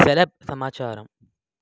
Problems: background sounds at intervals